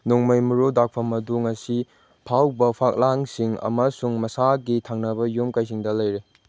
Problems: none marked